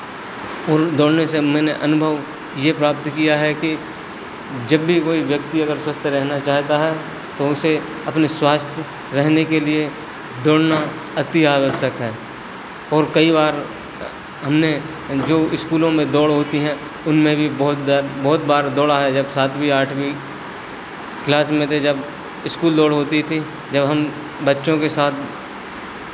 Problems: none marked